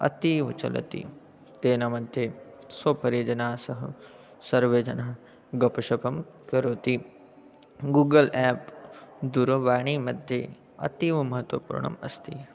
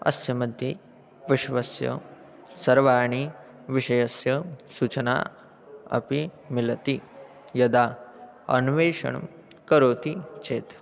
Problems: background sounds at intervals, continuous background conversations